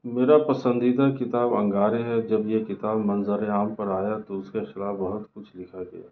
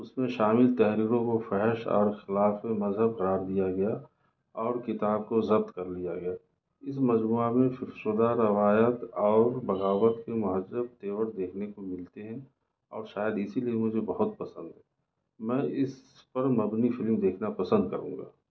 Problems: none marked